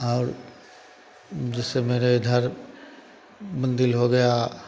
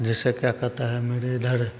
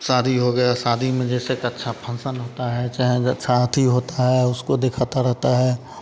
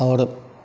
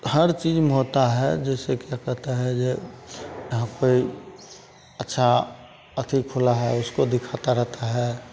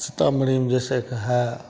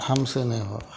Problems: constant background noise, continuous background conversations